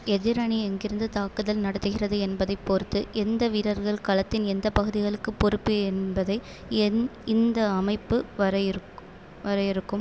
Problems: constant background noise